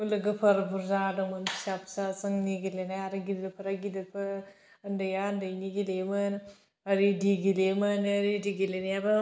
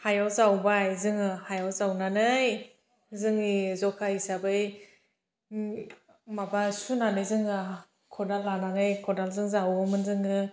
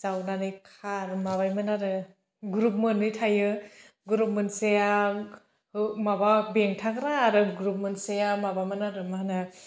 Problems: none marked